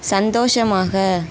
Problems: constant background noise